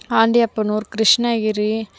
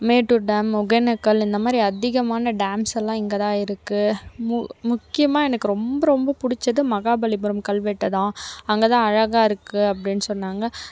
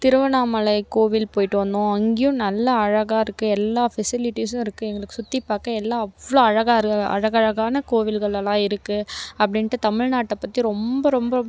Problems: none marked